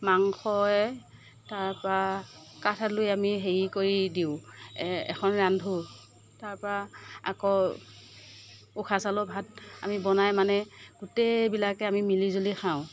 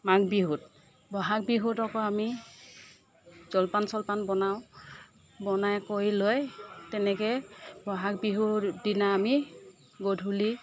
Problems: none marked